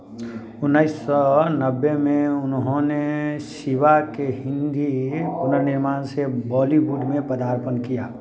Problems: none marked